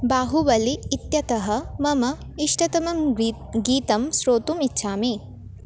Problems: constant background noise